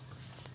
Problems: low volume